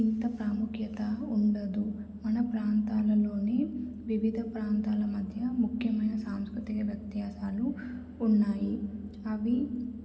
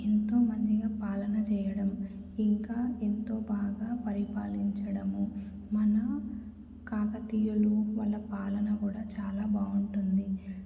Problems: low volume